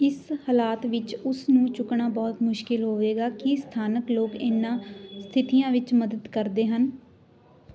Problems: none marked